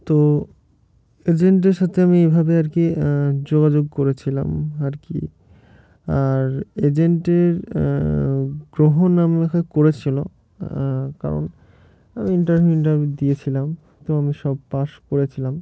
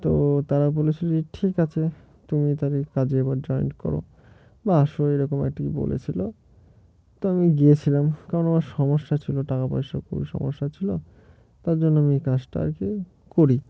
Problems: background sounds at intervals